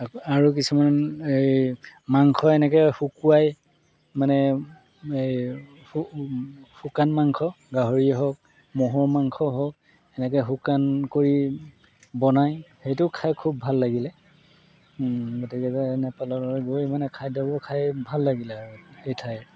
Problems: background sounds at intervals